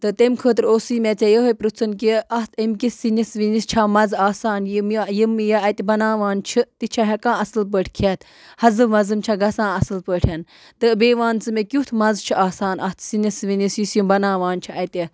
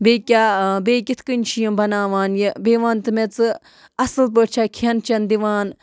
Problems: background sounds at intervals